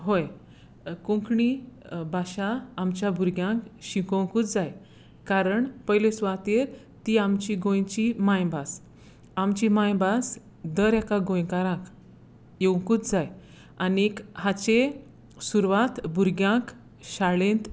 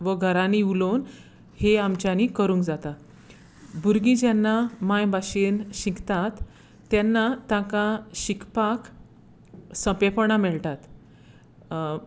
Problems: constant background noise